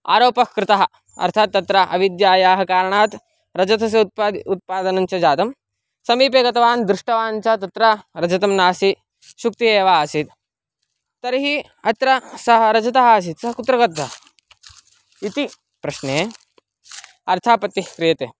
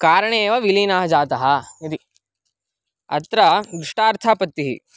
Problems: background sounds at intervals